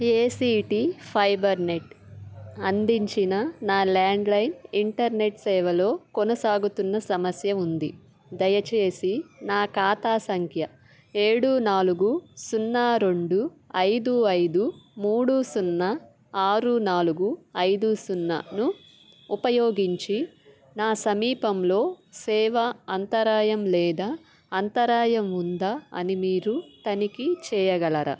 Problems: background sounds at intervals